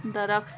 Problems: constant background noise, low volume